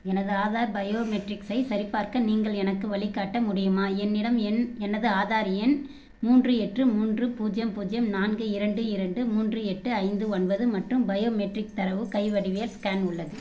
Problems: background sounds at intervals